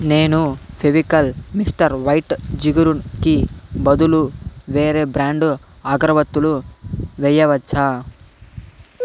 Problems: constant background noise